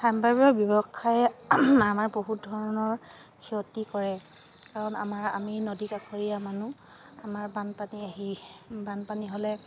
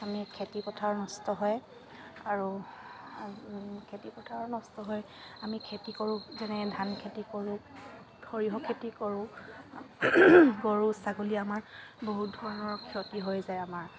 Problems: none marked